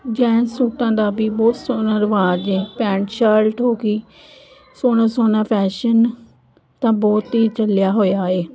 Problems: none marked